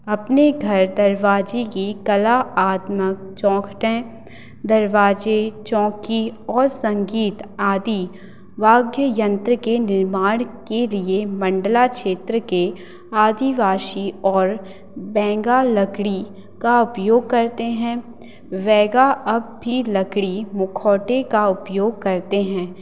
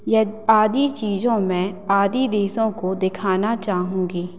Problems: none marked